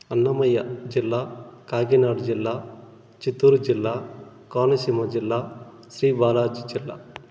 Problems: constant background noise